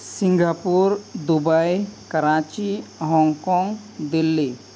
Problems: constant background noise